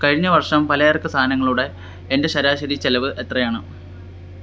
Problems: constant background noise